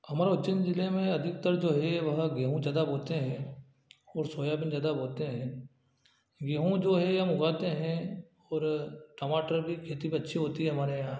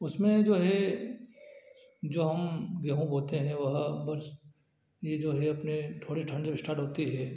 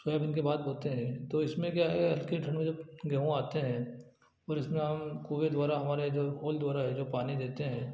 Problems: none marked